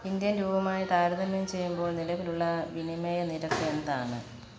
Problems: constant background noise